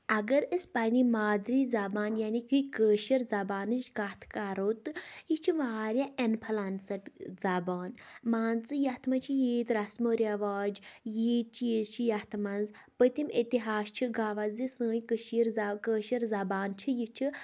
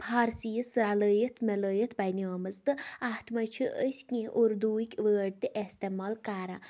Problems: background sounds at intervals